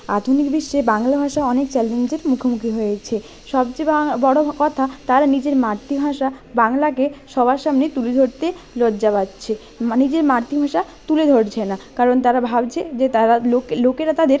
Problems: none marked